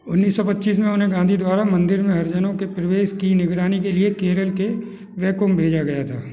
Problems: background sounds at intervals